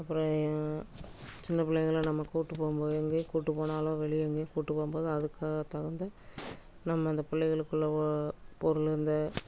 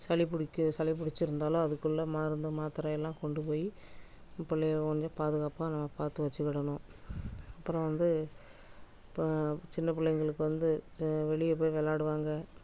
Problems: constant background noise